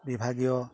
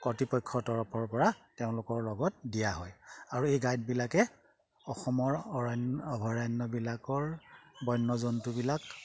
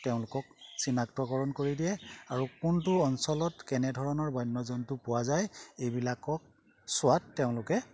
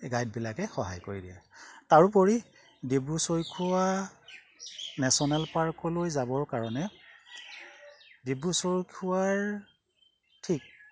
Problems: background sounds at intervals